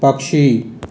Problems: constant background noise